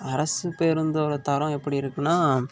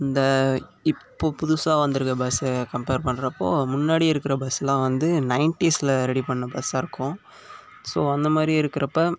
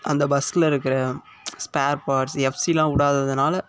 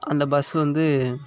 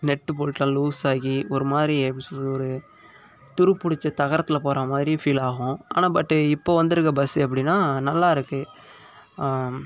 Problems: constant background noise